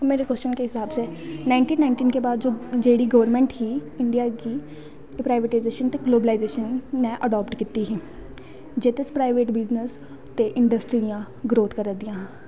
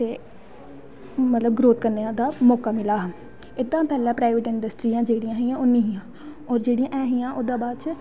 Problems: constant background noise